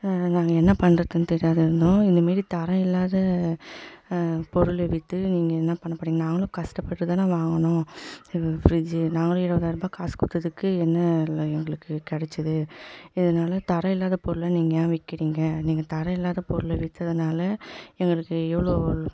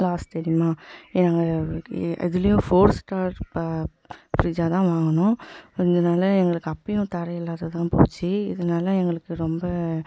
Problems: background sounds at intervals, echo